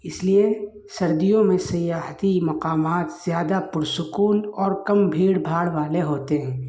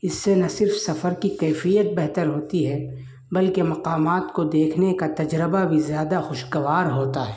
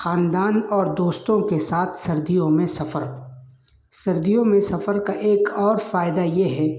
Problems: constant background noise